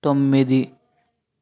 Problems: none marked